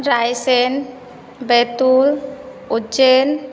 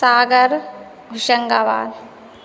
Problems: constant background noise